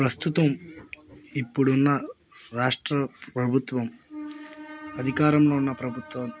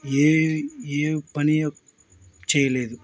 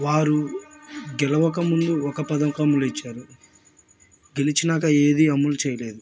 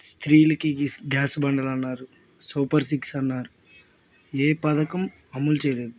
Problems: none marked